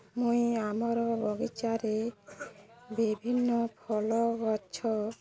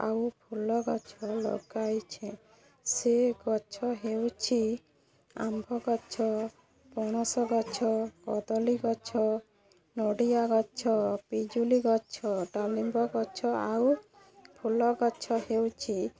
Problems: constant background noise, continuous background conversations